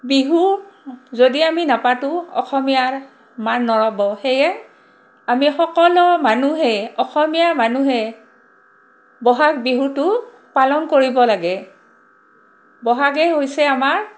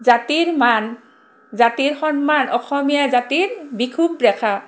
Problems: constant background noise